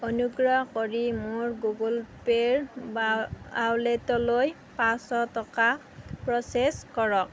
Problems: none marked